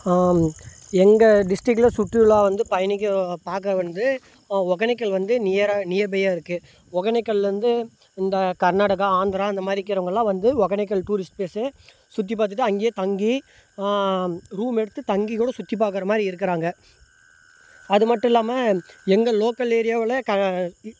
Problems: none marked